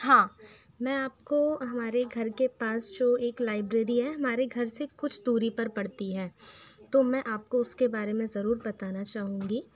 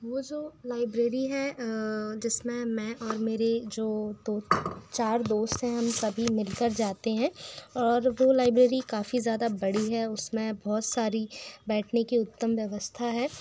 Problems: constant background noise